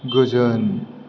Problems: constant background noise